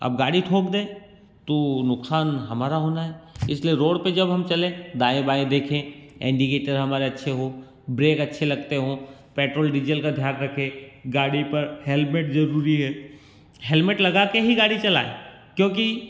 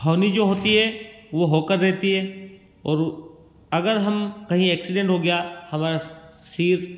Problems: none marked